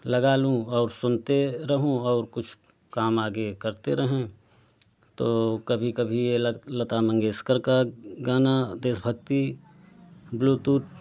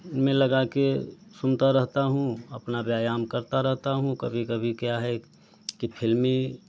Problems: constant background noise